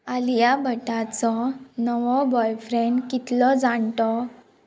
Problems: constant background noise